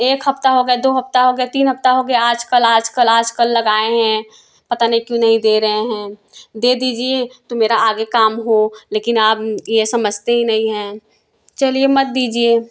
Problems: background sounds at intervals, background conversations at intervals